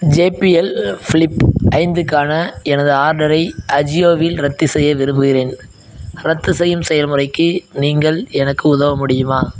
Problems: background sounds at intervals